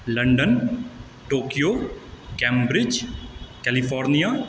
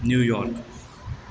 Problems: background sounds at intervals